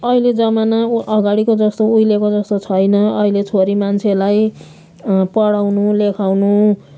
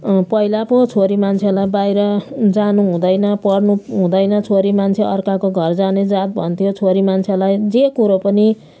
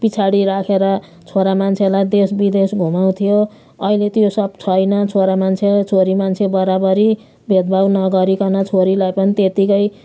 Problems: none marked